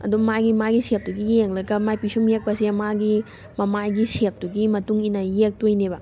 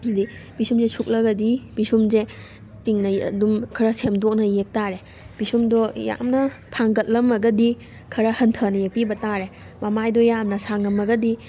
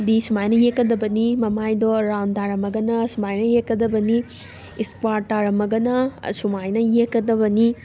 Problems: constant background noise